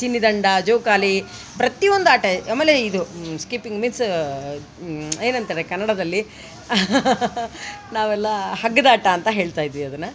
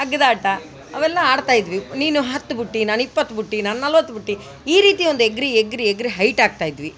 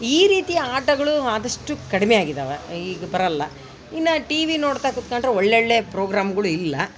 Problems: background sounds at intervals